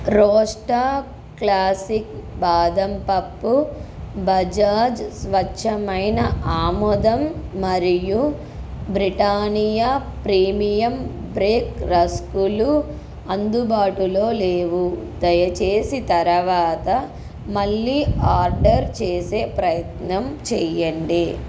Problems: constant background noise